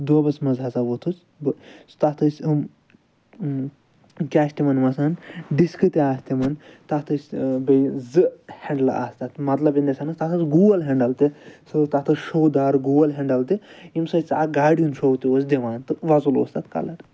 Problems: none marked